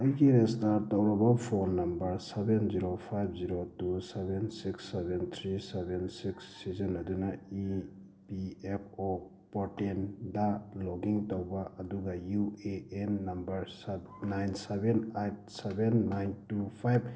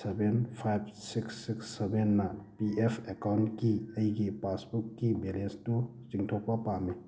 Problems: background sounds at intervals